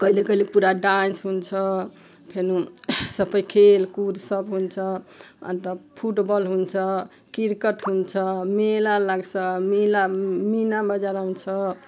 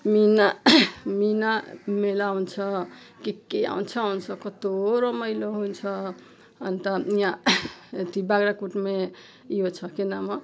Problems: none marked